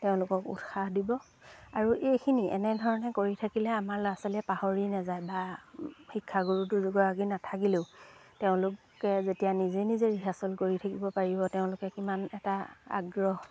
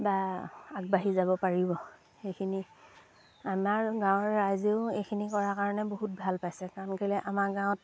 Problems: background sounds at intervals